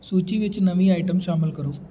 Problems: background sounds at intervals